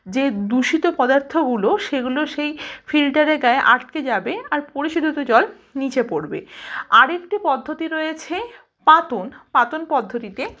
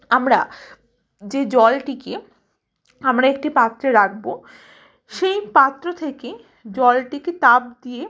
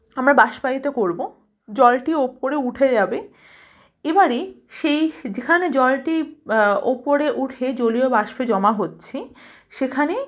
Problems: background sounds at intervals, background conversations at intervals